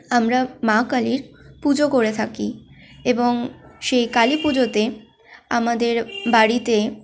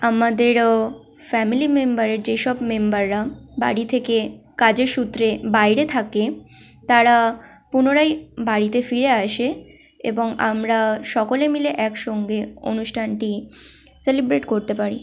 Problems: none marked